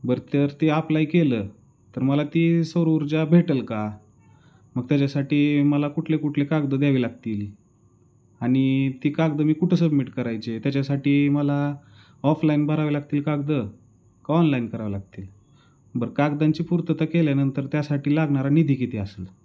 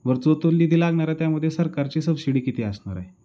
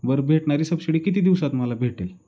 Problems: background sounds at intervals, background conversations at intervals